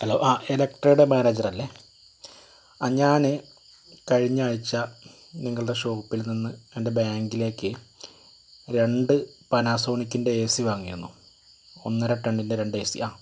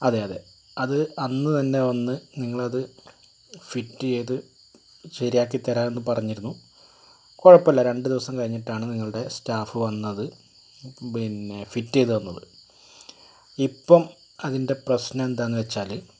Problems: constant background noise